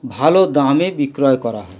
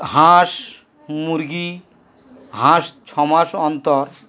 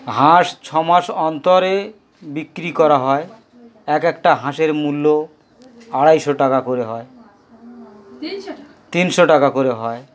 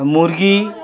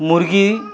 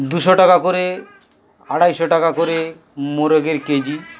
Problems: constant background noise, background conversations at intervals